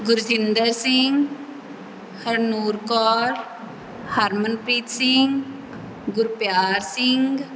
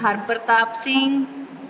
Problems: none marked